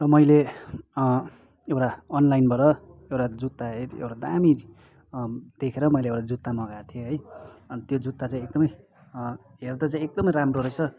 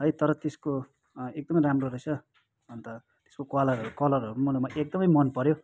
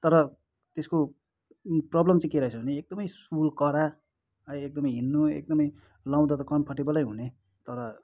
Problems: background sounds at intervals